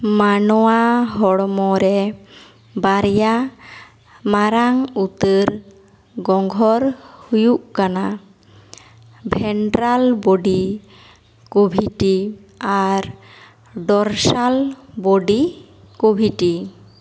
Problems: echo